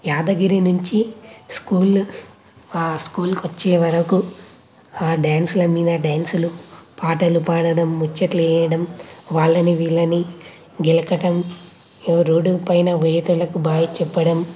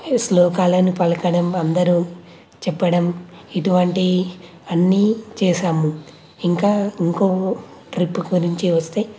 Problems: none marked